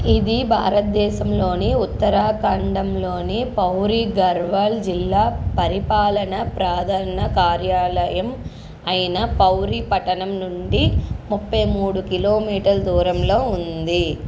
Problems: constant background noise